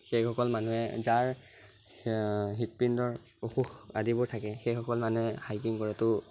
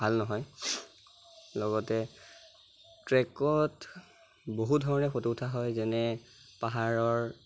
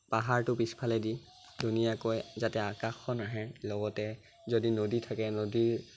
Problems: constant background noise